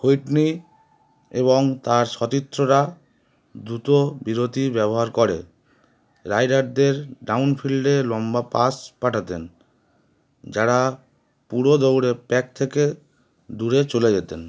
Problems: constant background noise